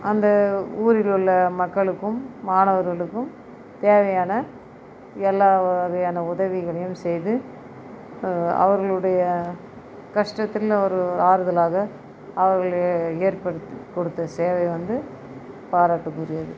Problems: none marked